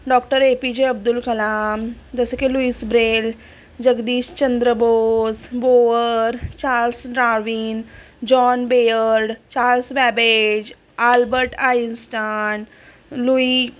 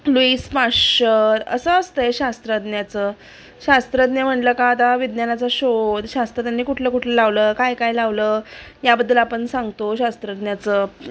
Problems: constant background noise, continuous background conversations